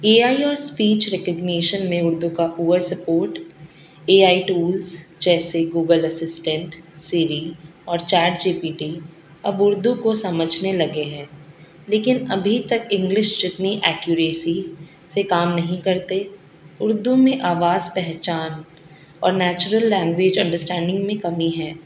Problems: constant background noise